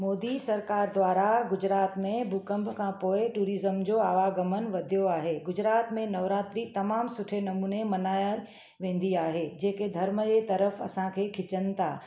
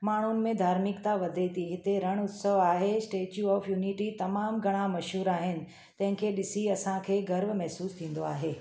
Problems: none marked